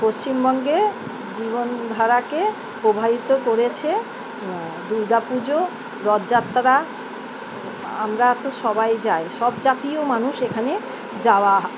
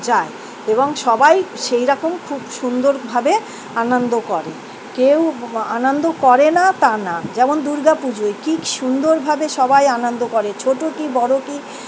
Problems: none marked